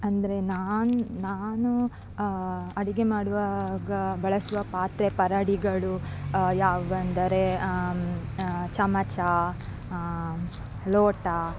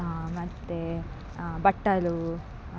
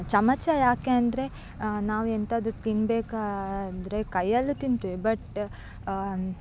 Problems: background sounds at intervals